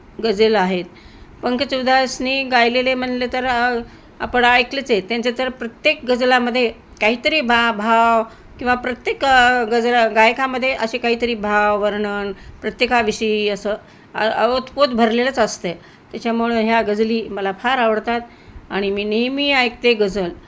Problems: none marked